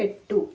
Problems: none marked